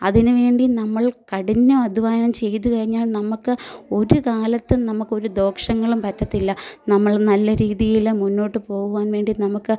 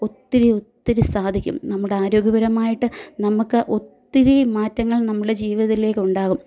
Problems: none marked